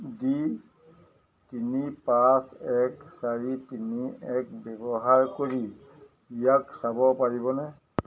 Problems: none marked